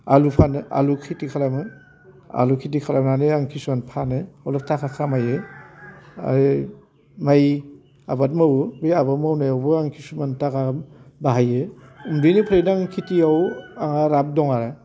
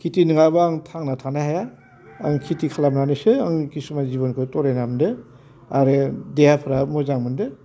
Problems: constant background noise